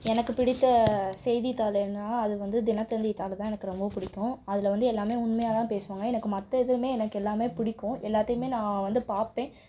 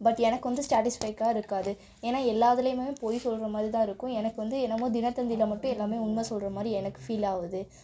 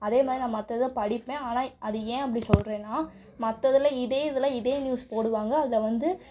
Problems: background conversations at intervals